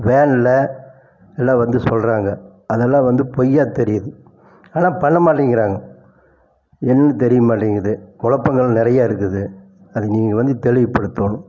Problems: constant background noise